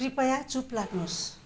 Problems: background sounds at intervals